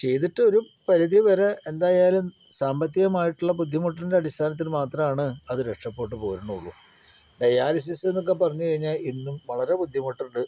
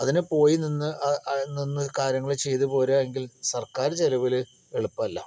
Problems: none marked